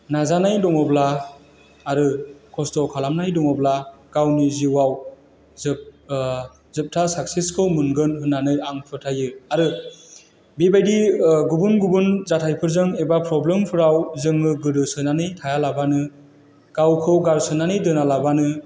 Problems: none marked